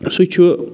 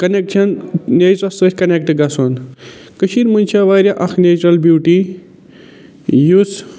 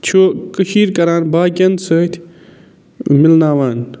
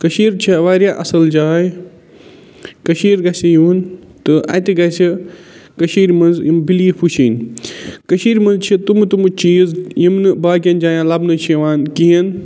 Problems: constant background noise